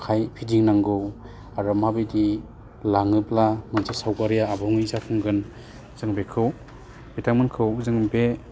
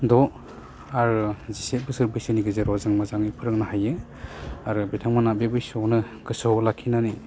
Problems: low volume